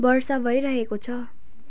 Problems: background sounds at intervals